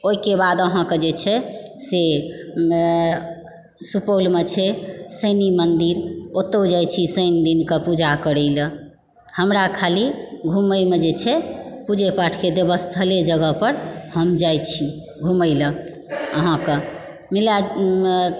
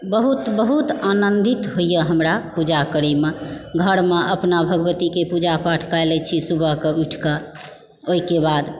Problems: background sounds at intervals